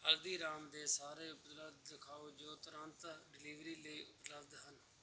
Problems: none marked